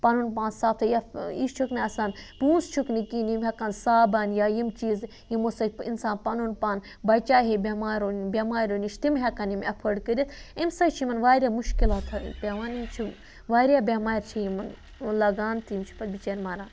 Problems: none marked